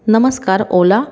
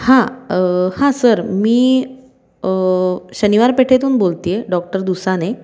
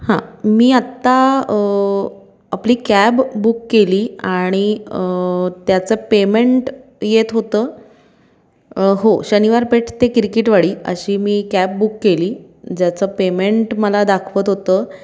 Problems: none marked